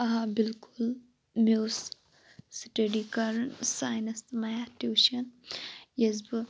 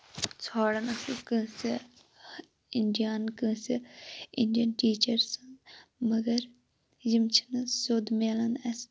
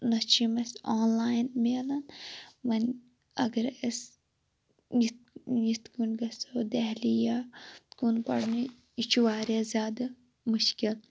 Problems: constant background noise